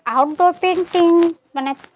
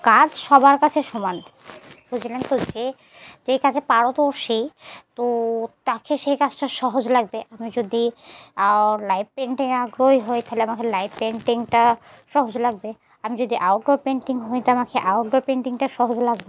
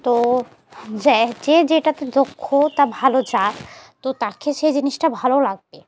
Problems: constant background noise